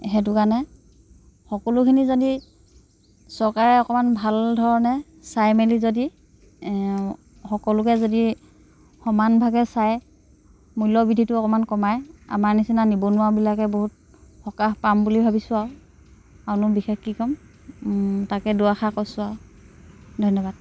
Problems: constant background noise